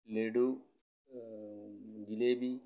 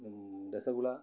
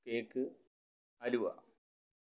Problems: low volume